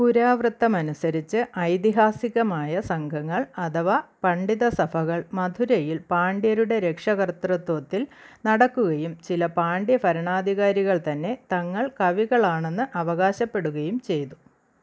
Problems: none marked